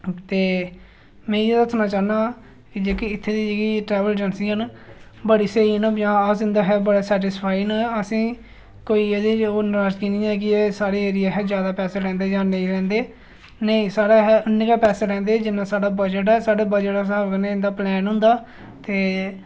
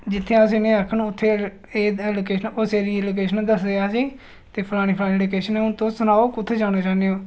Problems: none marked